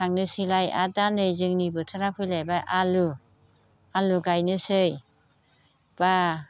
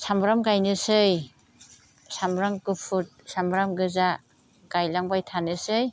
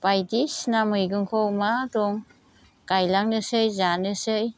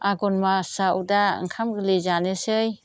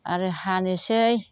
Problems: none marked